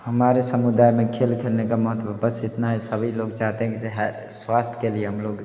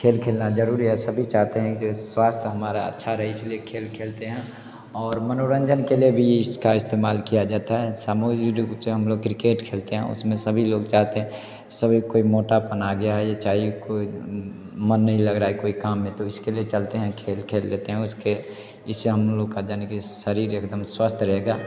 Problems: constant background noise, background conversations at intervals